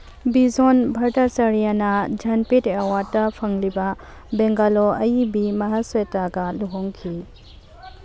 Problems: background sounds at intervals